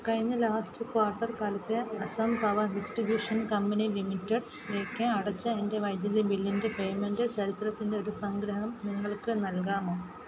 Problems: constant background noise, low volume